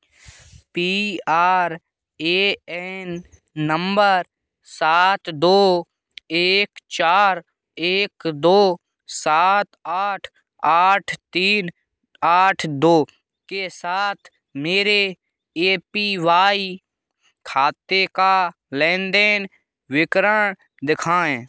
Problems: background sounds at intervals